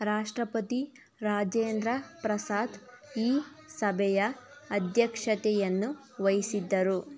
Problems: background conversations at intervals